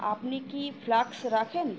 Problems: constant background noise